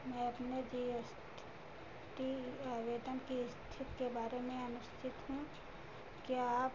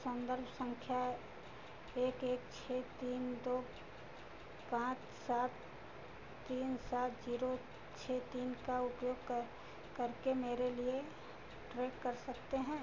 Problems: none marked